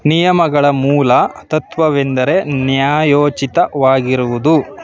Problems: background sounds at intervals